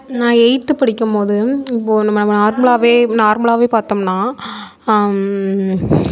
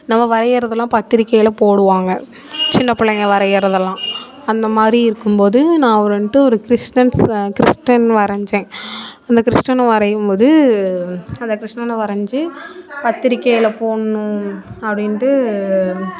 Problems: continuous background conversations